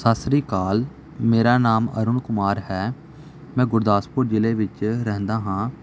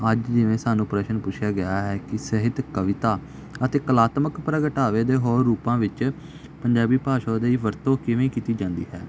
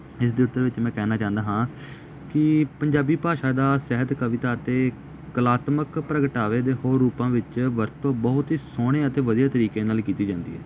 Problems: none marked